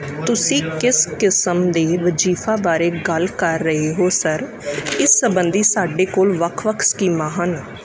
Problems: none marked